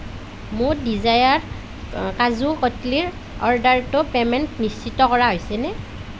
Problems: none marked